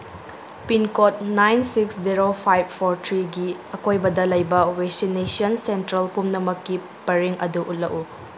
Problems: background sounds at intervals